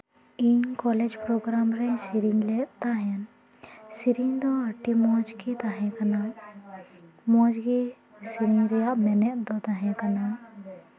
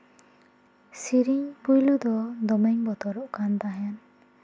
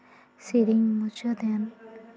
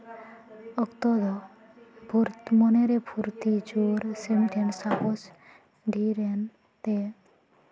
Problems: continuous background conversations